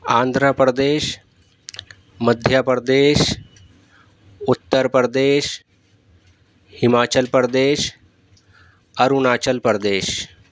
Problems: none marked